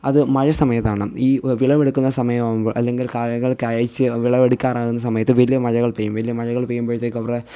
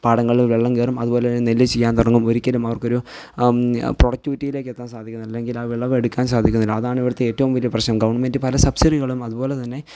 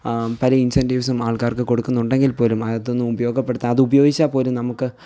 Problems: none marked